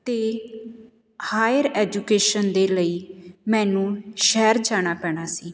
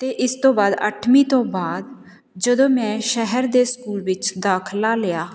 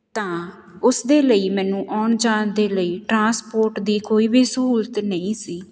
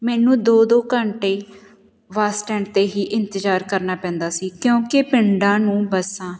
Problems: none marked